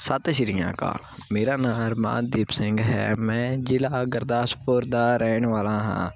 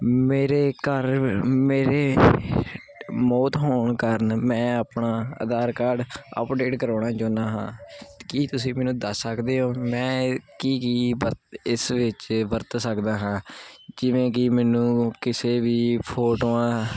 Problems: constant background noise